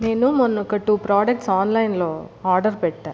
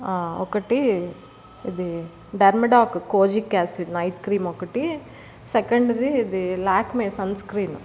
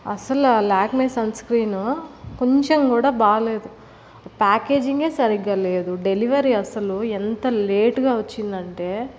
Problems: none marked